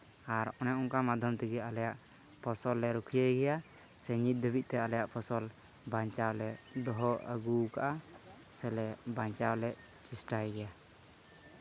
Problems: background sounds at intervals